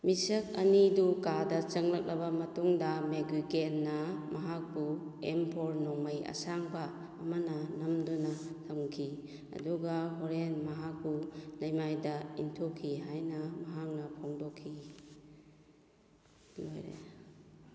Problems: background sounds at intervals